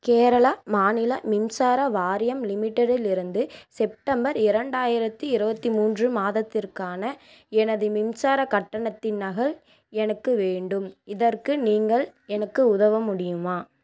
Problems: none marked